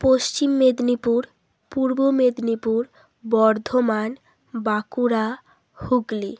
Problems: constant background noise